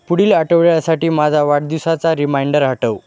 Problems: constant background noise